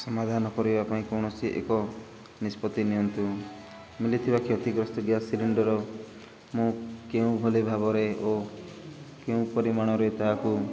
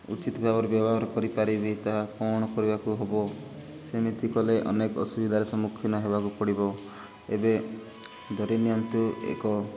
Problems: none marked